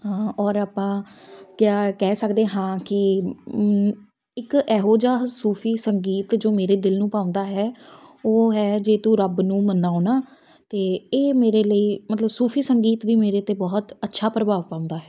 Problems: none marked